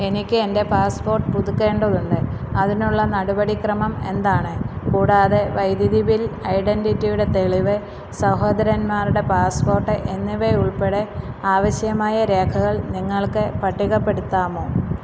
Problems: constant background noise